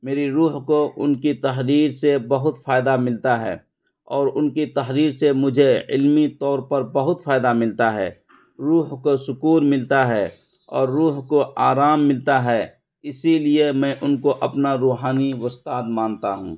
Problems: constant background noise